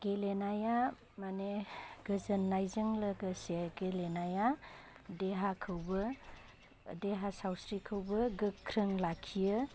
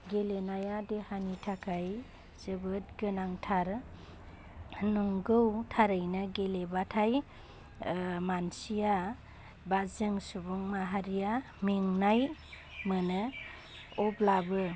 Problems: constant background noise